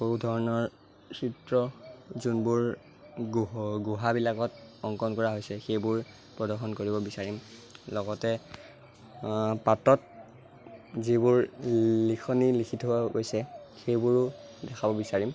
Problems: constant background noise